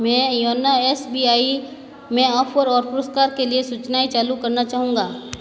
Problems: constant background noise, continuous background conversations